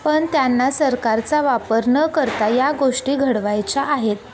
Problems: none marked